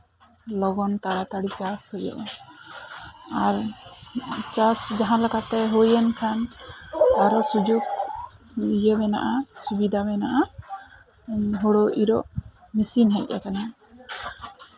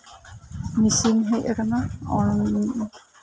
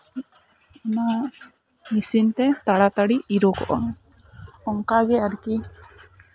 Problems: background sounds at intervals